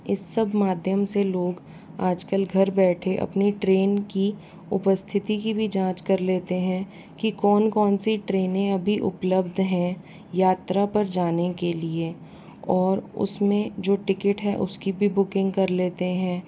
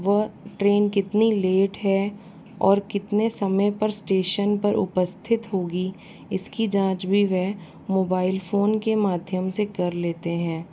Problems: constant background noise